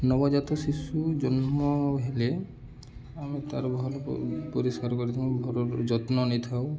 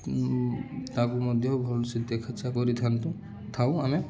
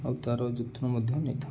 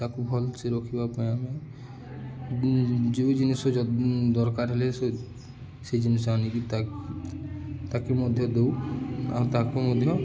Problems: constant background noise, continuous background conversations